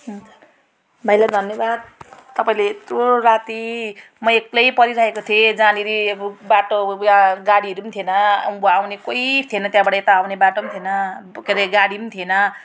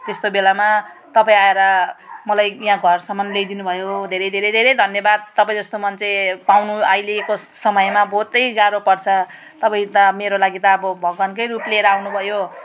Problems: background sounds at intervals